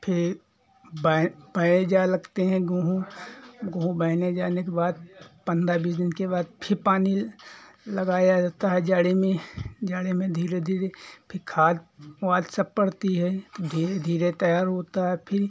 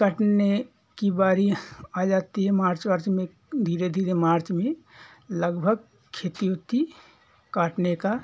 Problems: background sounds at intervals